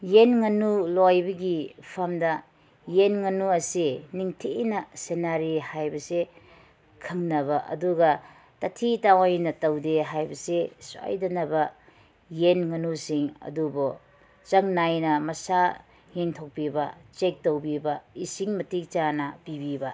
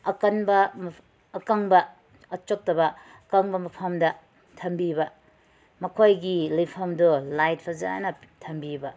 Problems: none marked